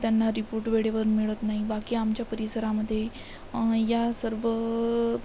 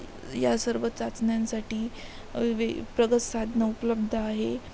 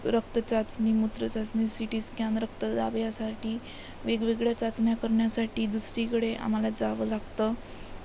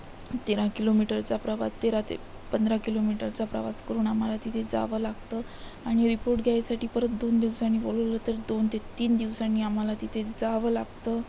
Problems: constant background noise